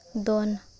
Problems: constant background noise